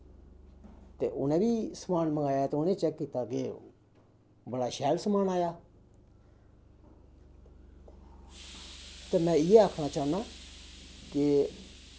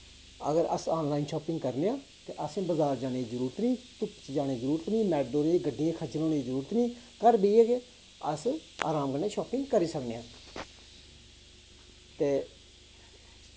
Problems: constant background noise